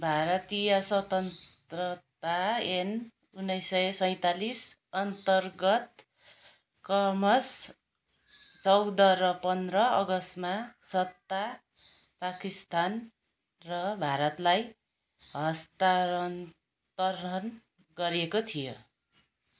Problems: none marked